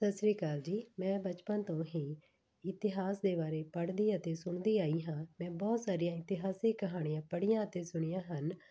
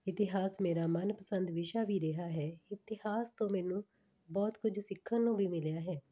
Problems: background sounds at intervals